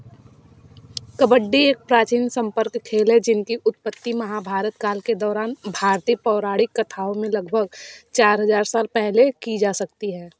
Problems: background sounds at intervals